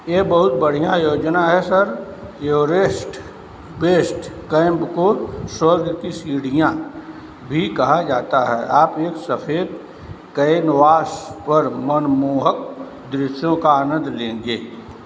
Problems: none marked